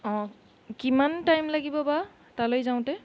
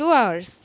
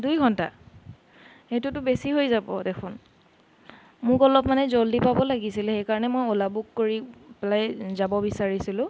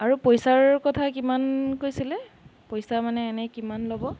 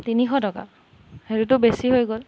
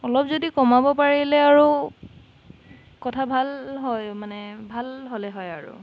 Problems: background sounds at intervals, background conversations at intervals